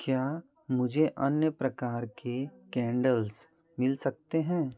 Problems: none marked